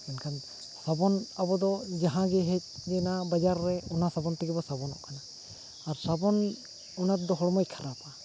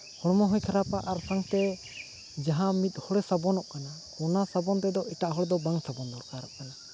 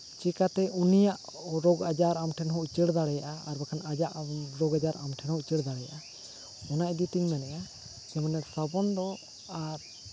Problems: none marked